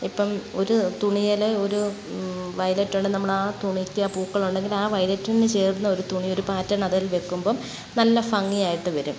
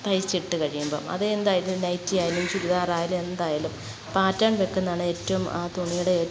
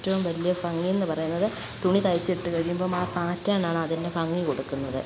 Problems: none marked